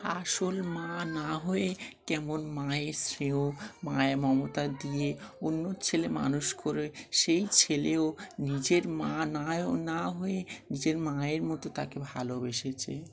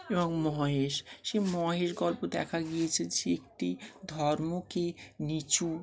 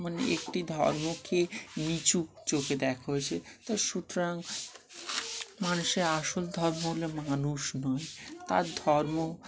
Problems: none marked